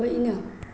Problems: low volume